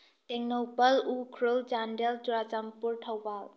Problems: low volume